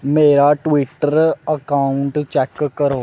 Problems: none marked